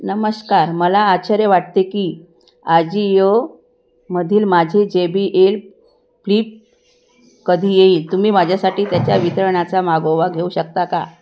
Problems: none marked